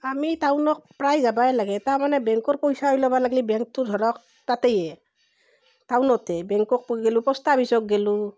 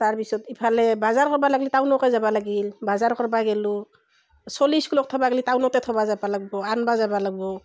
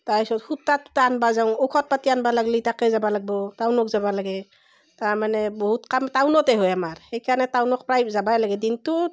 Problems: none marked